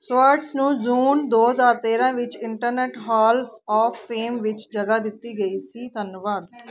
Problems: constant background noise